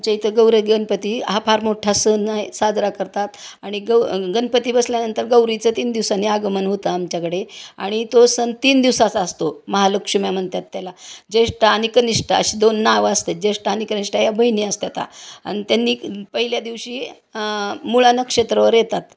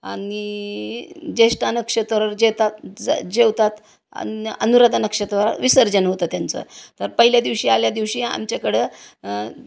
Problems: constant background noise